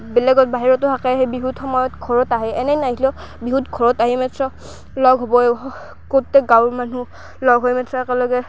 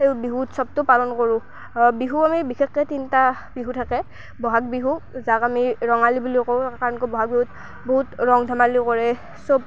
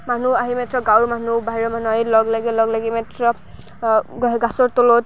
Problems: constant background noise